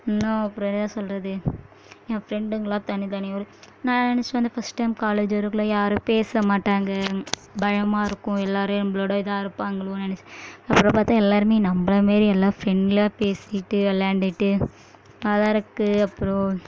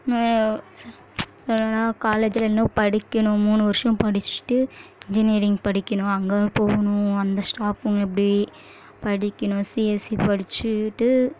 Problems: none marked